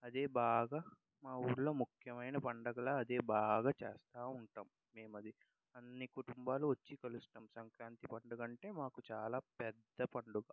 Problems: none marked